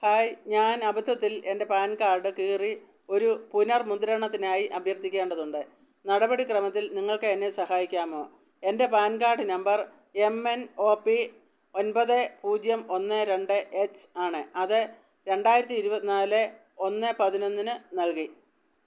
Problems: none marked